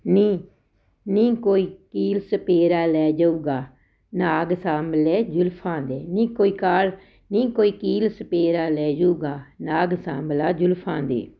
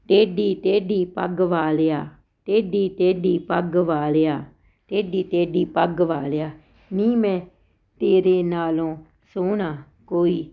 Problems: none marked